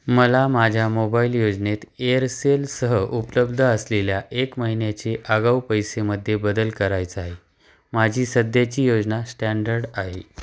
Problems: background sounds at intervals